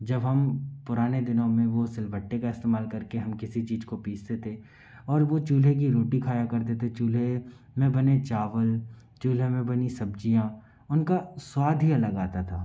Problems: background sounds at intervals